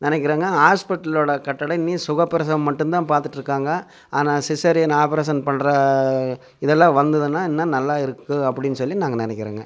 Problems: none marked